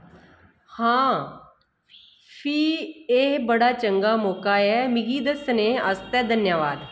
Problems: echo